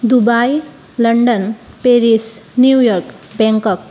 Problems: constant background noise